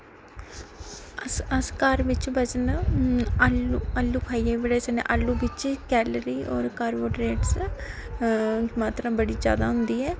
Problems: constant background noise, echo